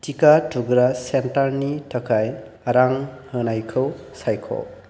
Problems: constant background noise